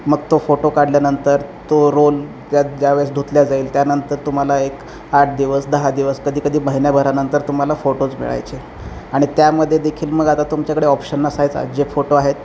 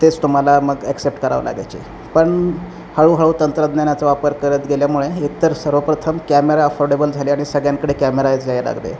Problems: none marked